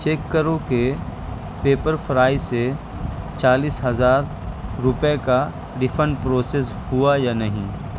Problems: constant background noise